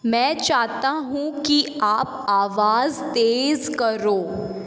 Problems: background sounds at intervals, echo